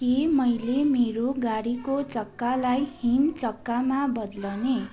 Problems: constant background noise